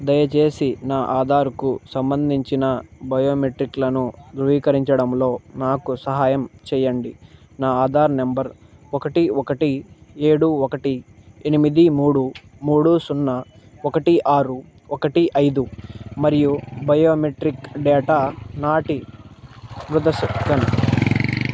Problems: background sounds at intervals